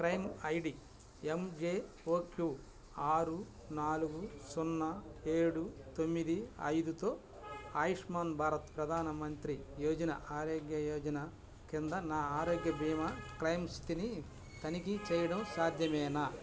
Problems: constant background noise